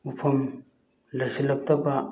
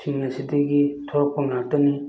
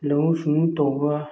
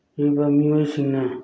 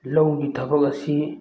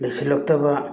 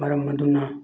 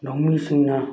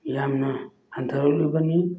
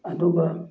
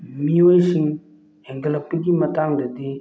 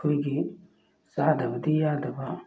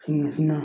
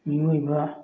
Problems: background sounds at intervals